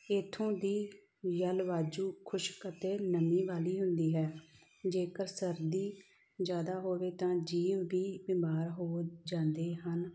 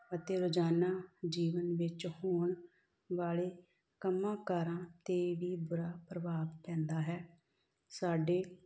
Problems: background sounds at intervals